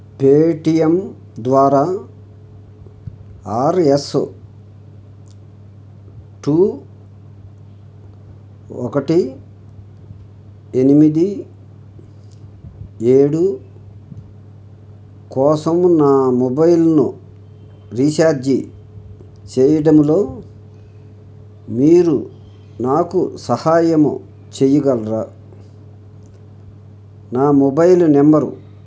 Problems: none marked